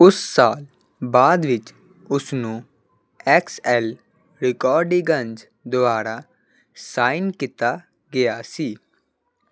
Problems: background sounds at intervals